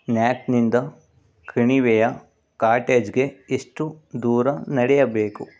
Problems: none marked